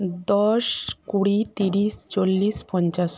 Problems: none marked